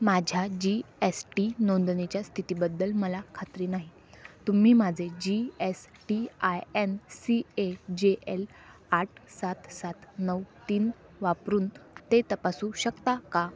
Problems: none marked